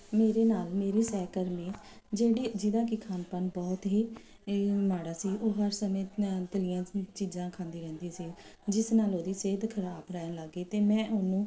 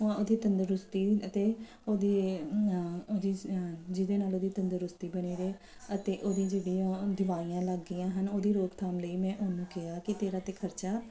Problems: none marked